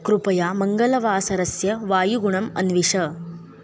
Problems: background conversations at intervals